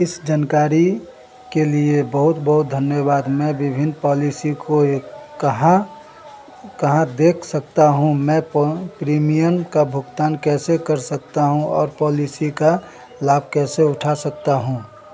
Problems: none marked